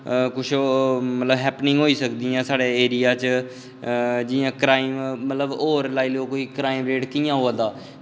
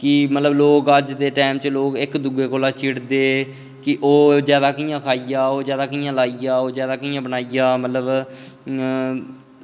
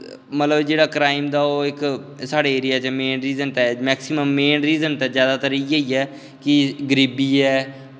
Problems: none marked